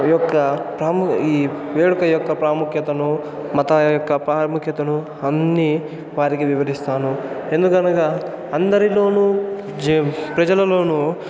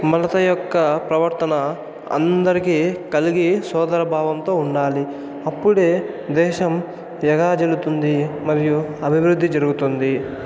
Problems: constant background noise, continuous background conversations